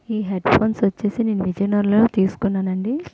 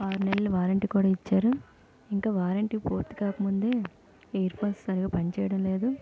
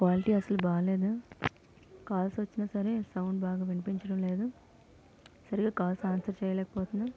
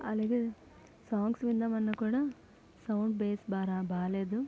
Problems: background sounds at intervals, low volume